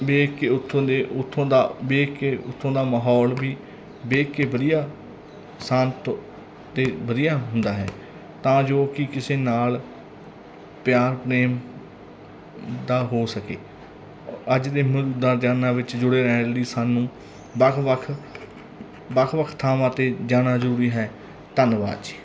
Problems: none marked